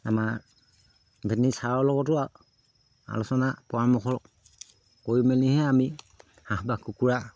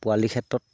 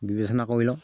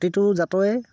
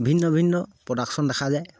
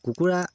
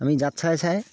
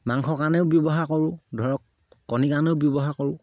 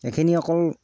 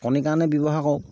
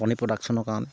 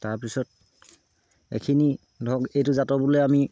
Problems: low volume